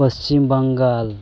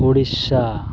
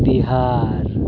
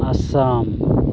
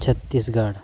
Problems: background sounds at intervals